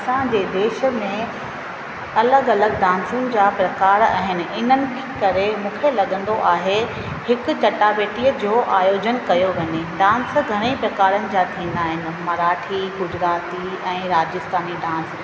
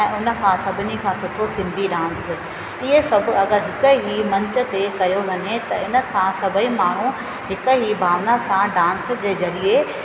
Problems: constant background noise, echo